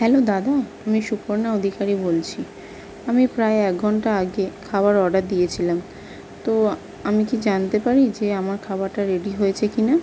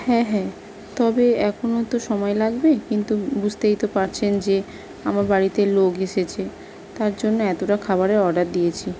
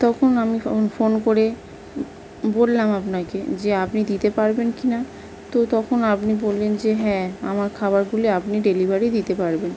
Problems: constant background noise